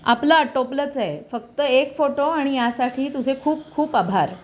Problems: constant background noise, continuous background conversations